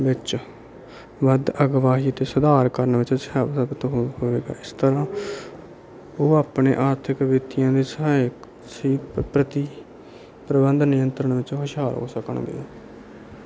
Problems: none marked